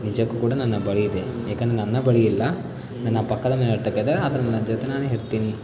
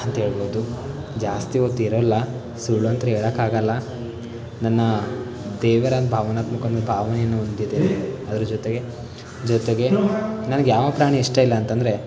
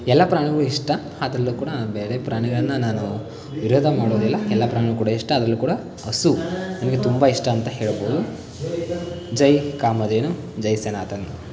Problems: constant background noise